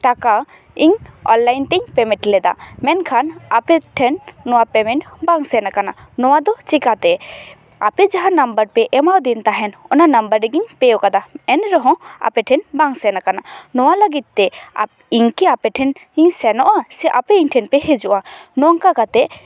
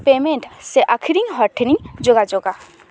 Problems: background sounds at intervals, background conversations at intervals